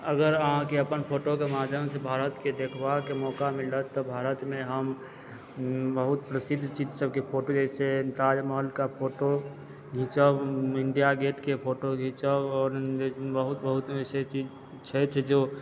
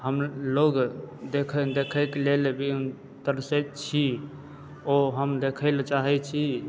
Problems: background sounds at intervals, background conversations at intervals